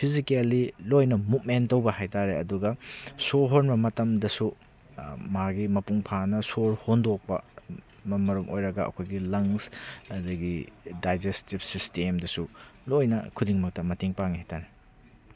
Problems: background sounds at intervals